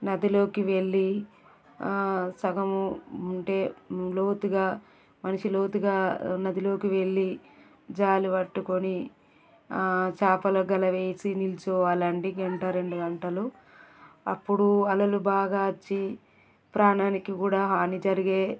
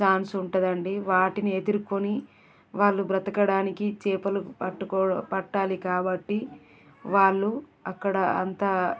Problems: continuous background conversations